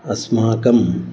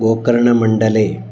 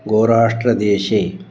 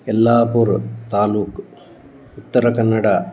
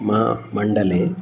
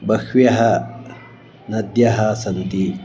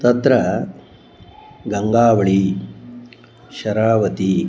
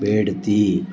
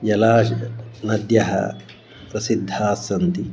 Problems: background sounds at intervals